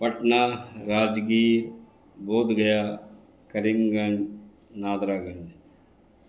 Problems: constant background noise